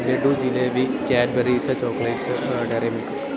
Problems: continuous background conversations, low volume